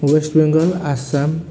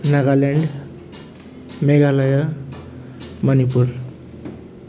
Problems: constant background noise